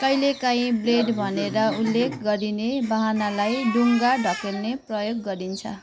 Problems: constant background noise